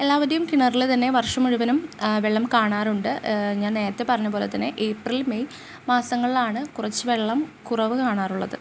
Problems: constant background noise